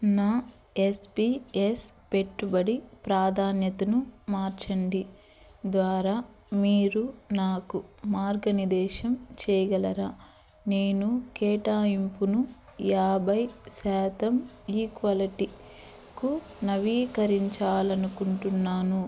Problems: constant background noise